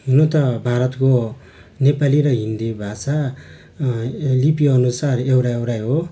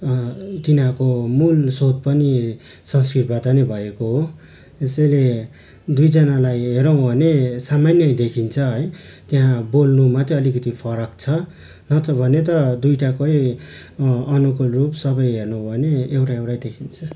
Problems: constant background noise